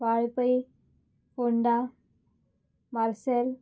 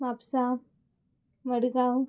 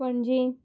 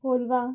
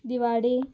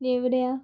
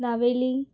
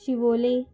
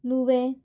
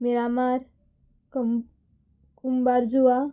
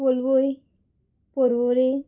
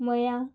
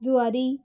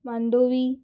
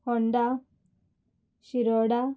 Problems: background sounds at intervals